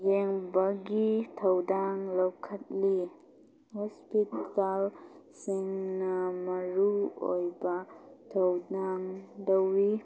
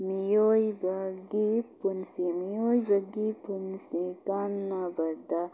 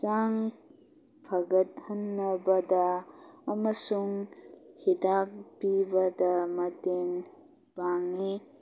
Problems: background sounds at intervals